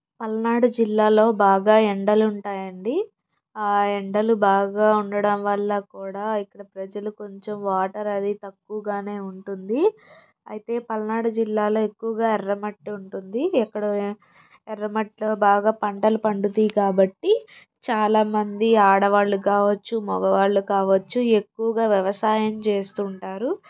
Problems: none marked